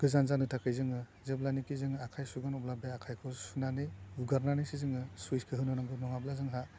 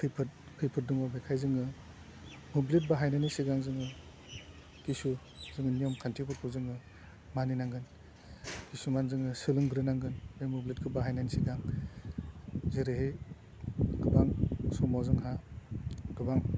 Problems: low volume